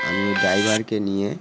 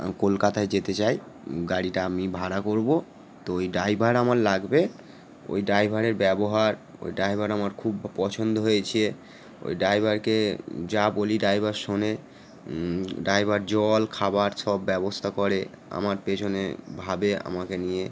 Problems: none marked